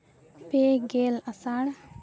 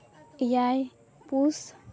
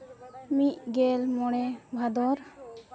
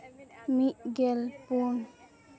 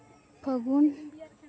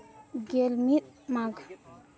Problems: continuous background conversations